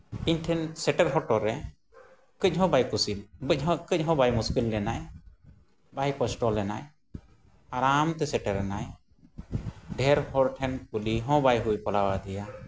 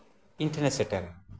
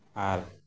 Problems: constant background noise